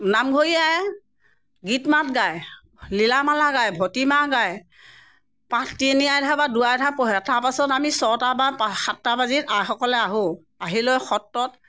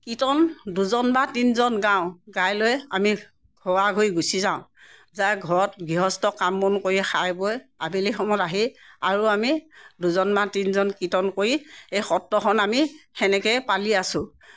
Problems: none marked